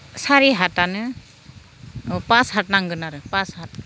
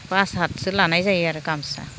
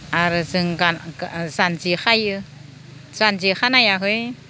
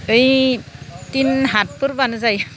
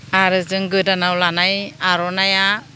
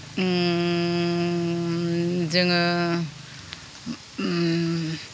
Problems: none marked